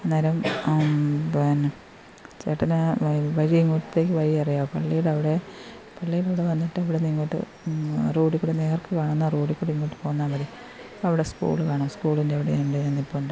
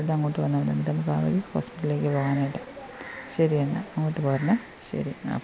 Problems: constant background noise